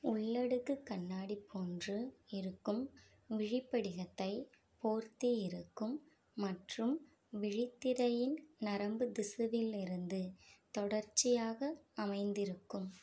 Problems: low volume